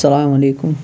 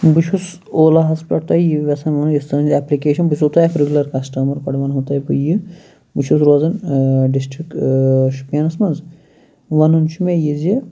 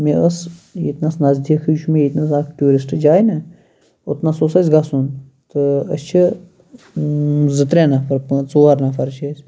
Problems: constant background noise